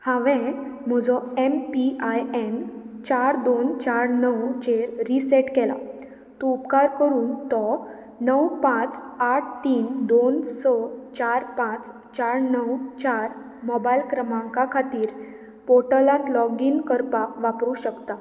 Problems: constant background noise